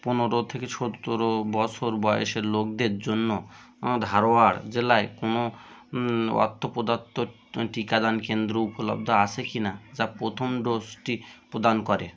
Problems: constant background noise, background conversations at intervals